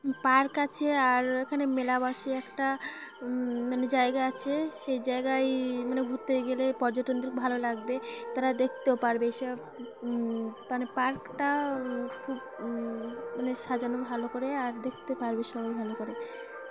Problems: constant background noise, background conversations at intervals